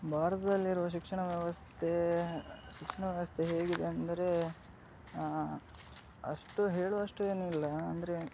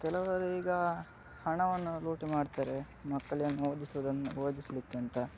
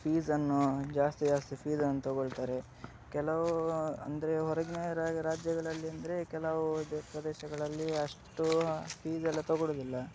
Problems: background sounds at intervals